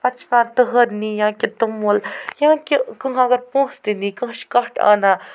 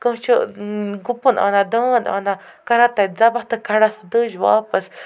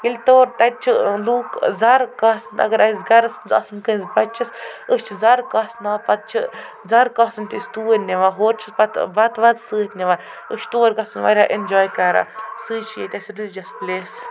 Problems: constant background noise, background conversations at intervals